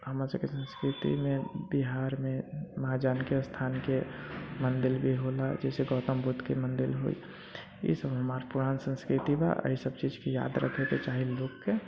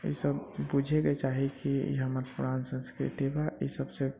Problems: constant background noise, low volume